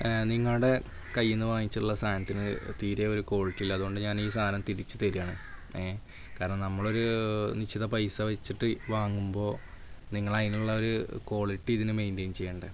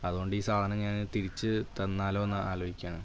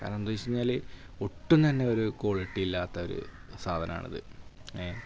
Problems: constant background noise, low volume